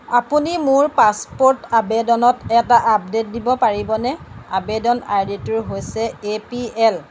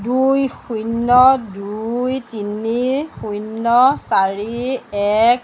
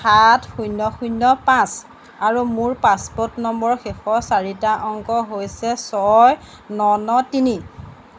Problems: background sounds at intervals